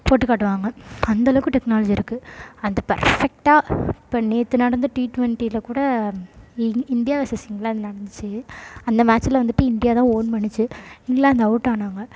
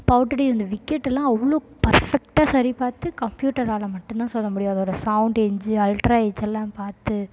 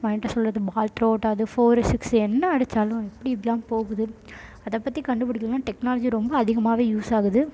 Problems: background sounds at intervals, low volume